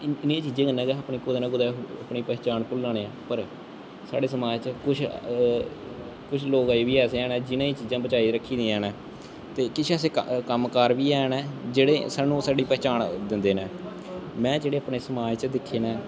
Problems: constant background noise, echo